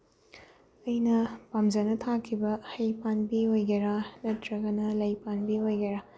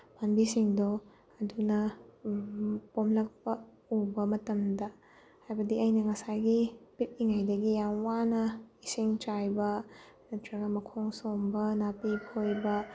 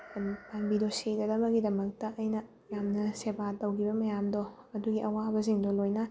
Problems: background sounds at intervals